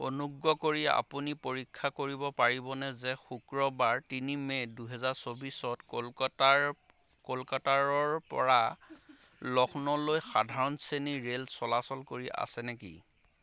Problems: constant background noise, background conversations at intervals